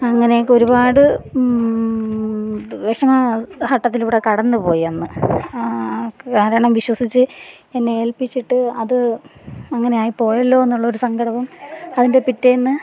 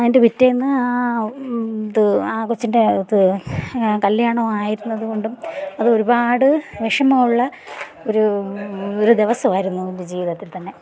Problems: background sounds at intervals, background conversations at intervals